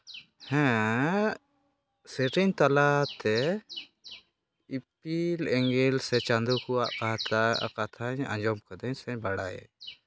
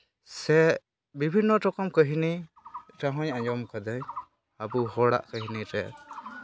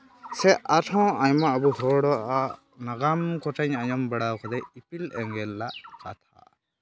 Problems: background sounds at intervals, background conversations at intervals